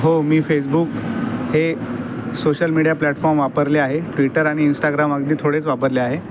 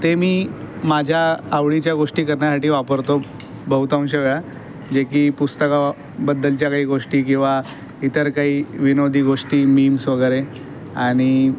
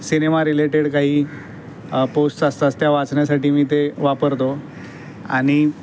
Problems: none marked